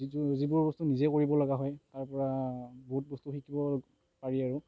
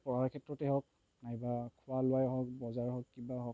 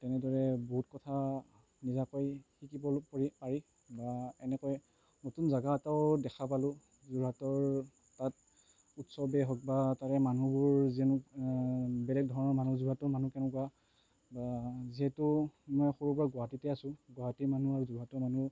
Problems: constant background noise